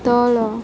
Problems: constant background noise